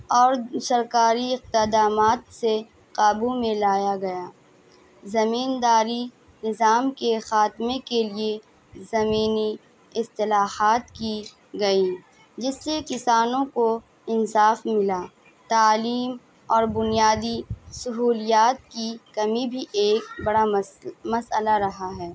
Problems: constant background noise, background conversations at intervals